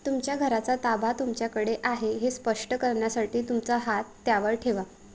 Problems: constant background noise